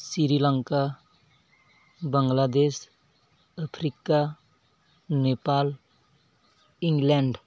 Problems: background sounds at intervals